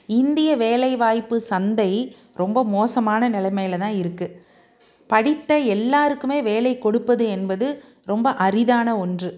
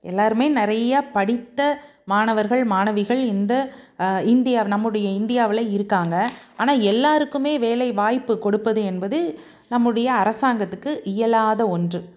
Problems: none marked